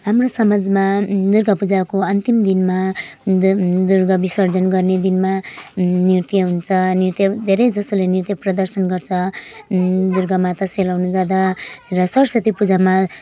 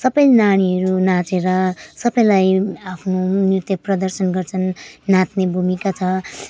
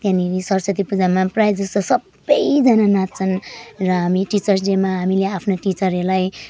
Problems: background sounds at intervals